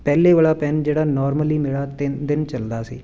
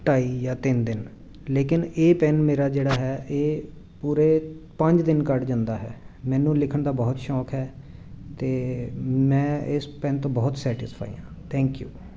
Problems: constant background noise